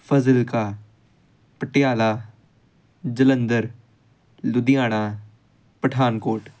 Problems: none marked